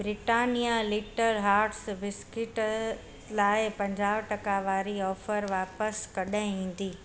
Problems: constant background noise